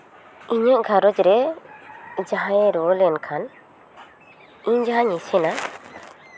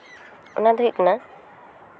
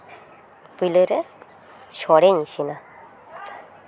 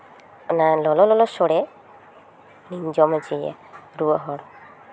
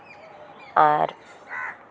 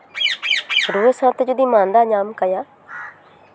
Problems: constant background noise